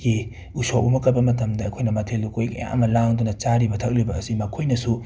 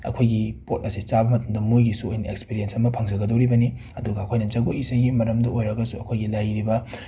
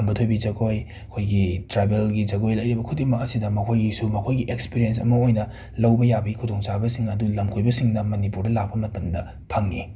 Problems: none marked